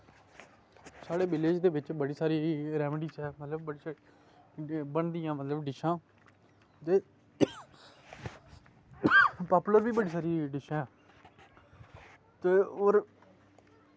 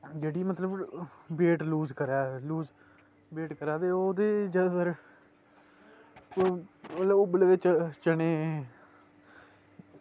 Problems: constant background noise